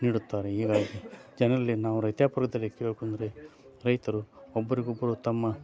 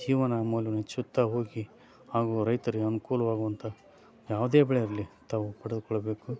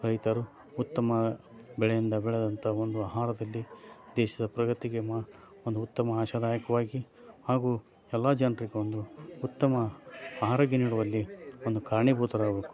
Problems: background sounds at intervals